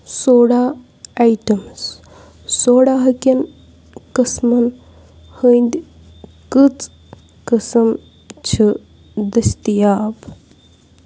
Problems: constant background noise